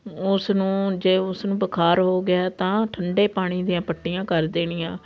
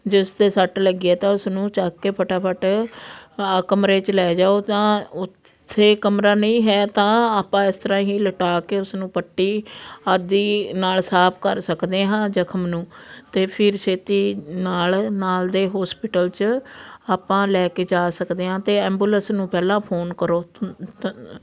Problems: constant background noise